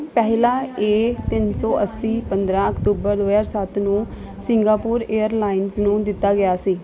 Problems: none marked